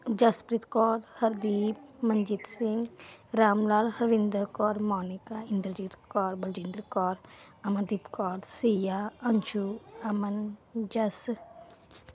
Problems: background sounds at intervals